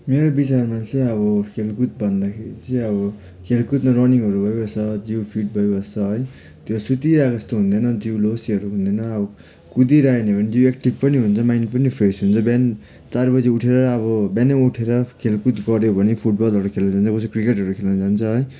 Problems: background sounds at intervals